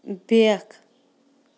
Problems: background sounds at intervals